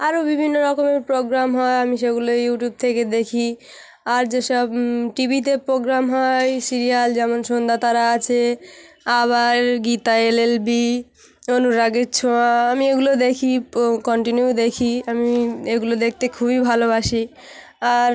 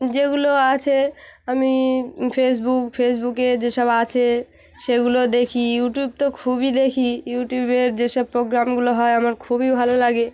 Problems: constant background noise, continuous background conversations